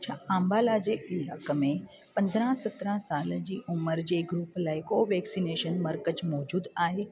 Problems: constant background noise